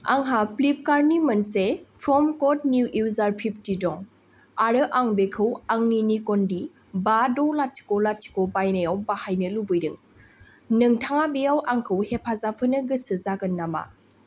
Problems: none marked